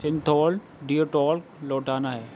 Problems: background sounds at intervals